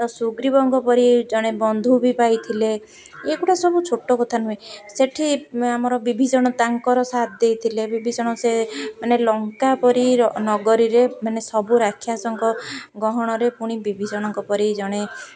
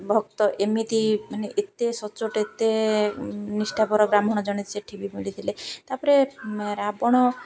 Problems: none marked